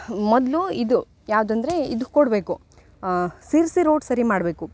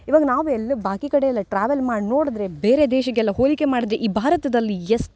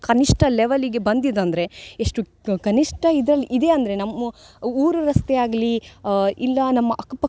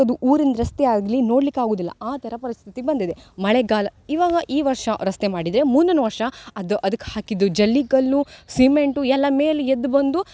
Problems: none marked